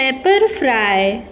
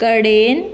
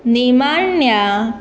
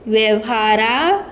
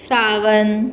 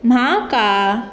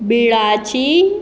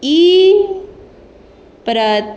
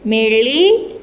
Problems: background sounds at intervals